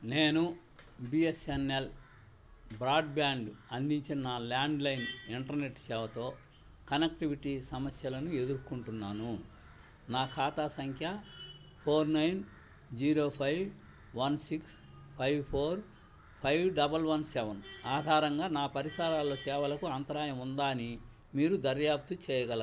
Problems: none marked